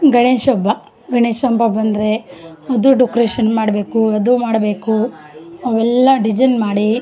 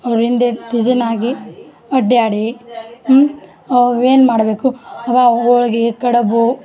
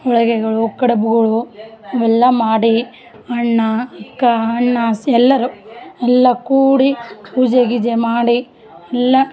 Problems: background sounds at intervals